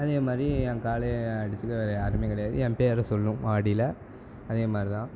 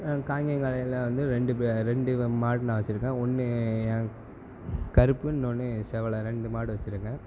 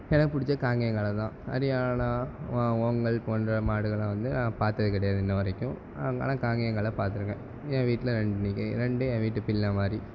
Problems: constant background noise